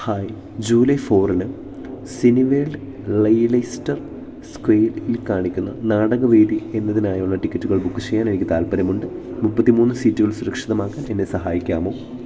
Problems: background sounds at intervals